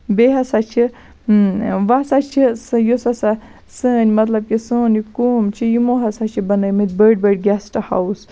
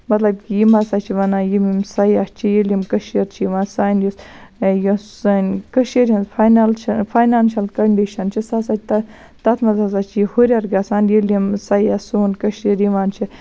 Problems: constant background noise